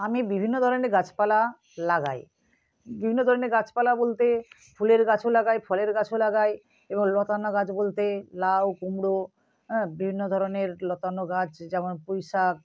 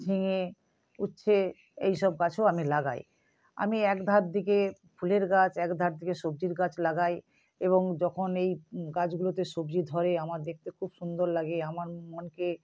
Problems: background sounds at intervals